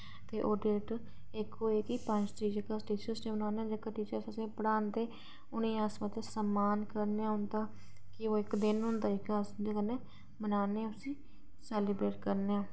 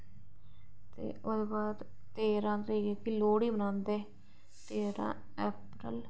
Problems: none marked